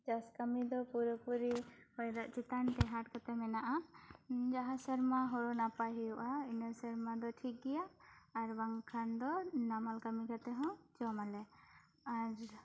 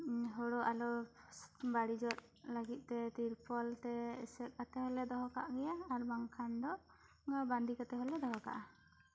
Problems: low volume